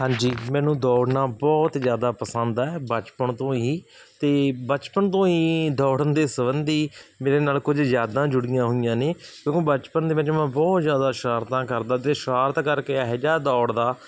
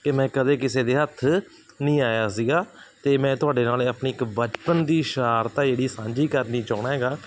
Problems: none marked